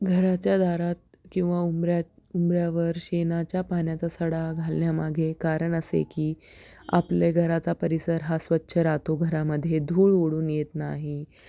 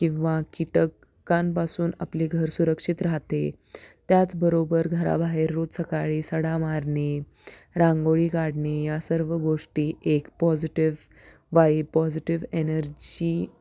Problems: background sounds at intervals